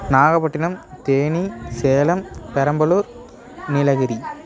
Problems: continuous background conversations